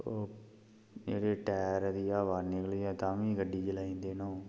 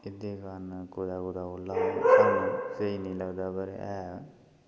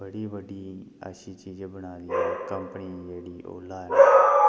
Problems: constant background noise, low volume